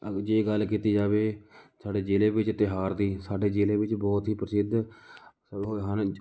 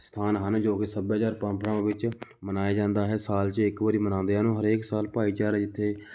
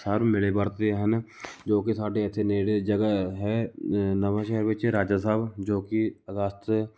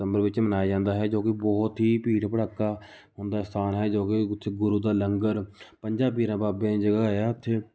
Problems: background sounds at intervals